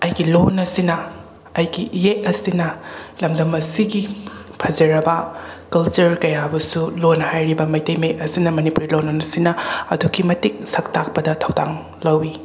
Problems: background sounds at intervals